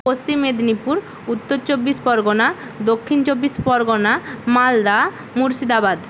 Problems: constant background noise